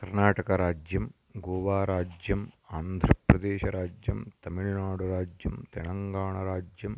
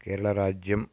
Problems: none marked